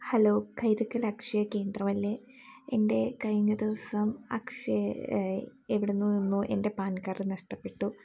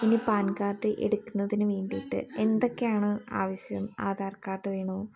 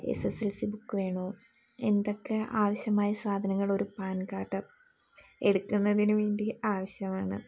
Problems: none marked